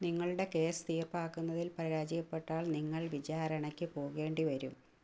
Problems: low volume